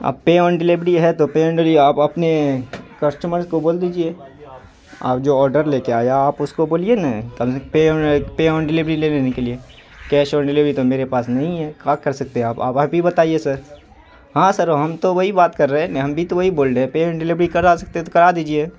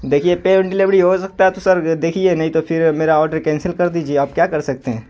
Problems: constant background noise